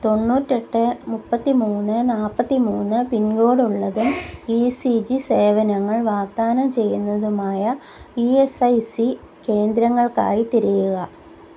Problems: background sounds at intervals